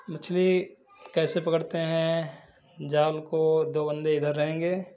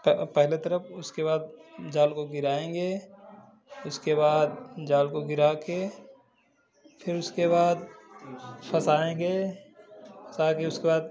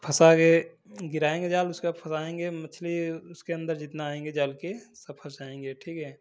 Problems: background sounds at intervals